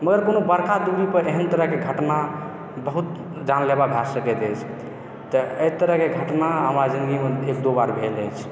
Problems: echo